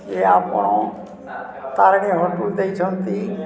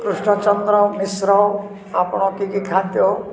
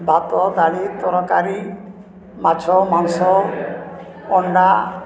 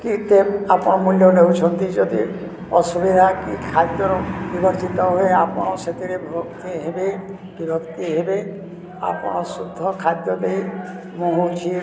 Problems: constant background noise, continuous background conversations